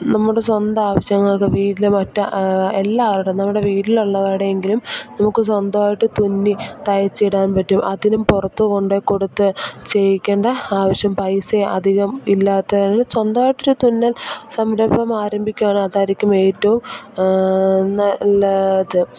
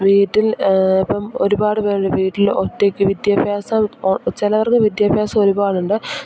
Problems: none marked